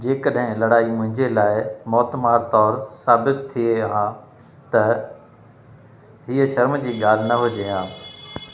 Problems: constant background noise, echo